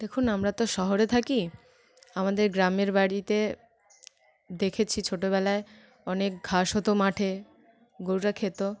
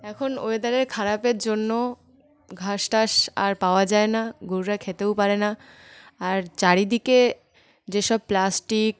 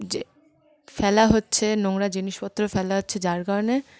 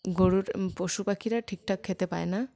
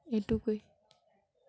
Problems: none marked